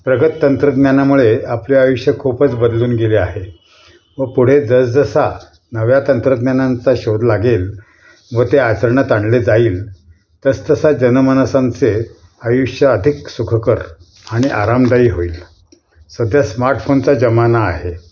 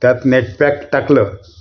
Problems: none marked